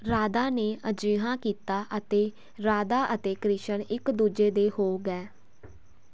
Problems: constant background noise